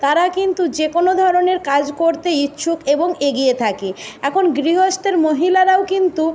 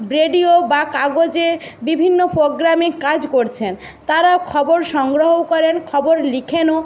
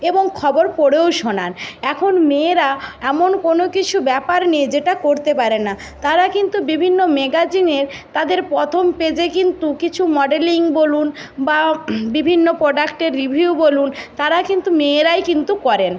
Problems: constant background noise